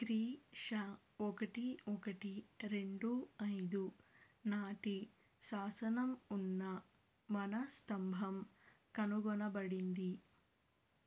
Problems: none marked